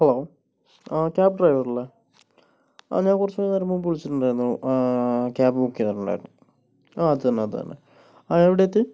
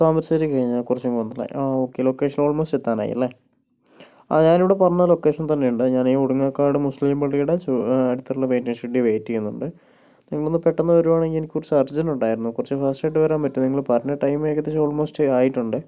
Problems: none marked